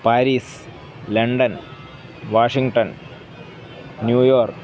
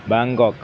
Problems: background sounds at intervals